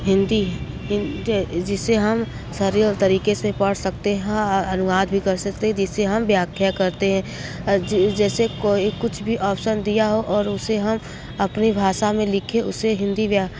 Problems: background sounds at intervals